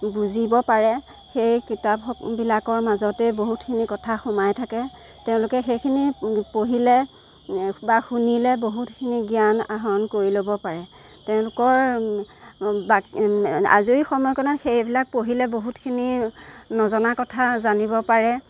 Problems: none marked